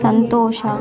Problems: background sounds at intervals